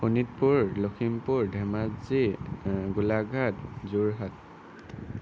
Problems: constant background noise